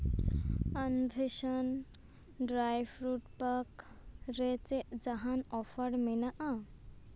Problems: constant background noise